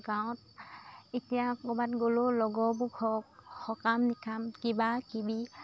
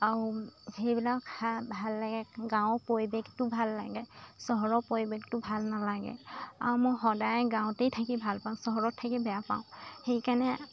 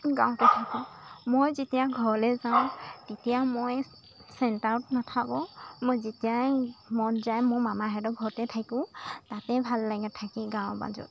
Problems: constant background noise